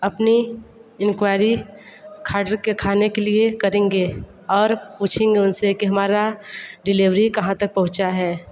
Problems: background sounds at intervals